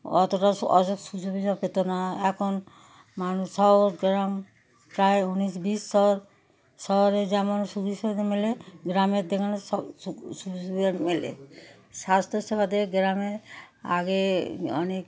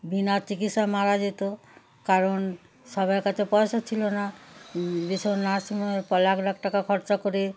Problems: none marked